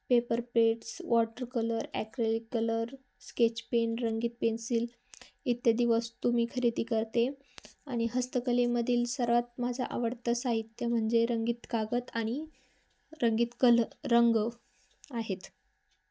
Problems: constant background noise